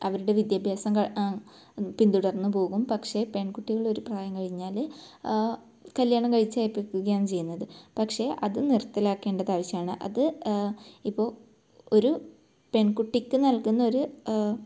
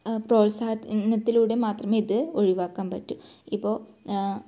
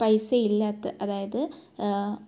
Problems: low volume